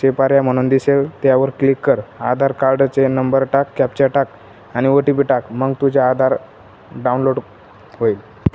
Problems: none marked